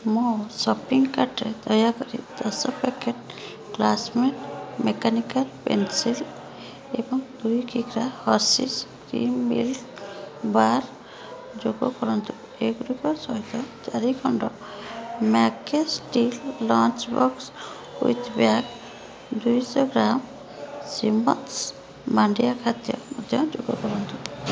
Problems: constant background noise